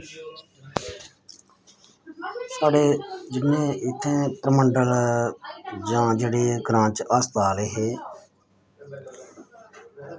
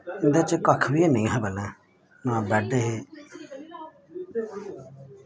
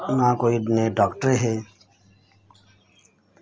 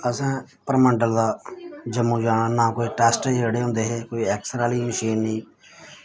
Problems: constant background noise